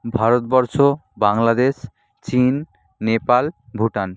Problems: none marked